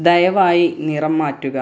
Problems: none marked